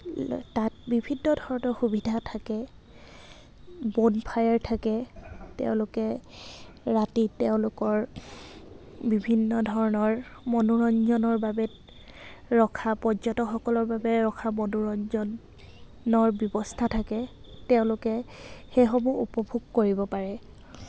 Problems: none marked